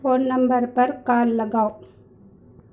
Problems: none marked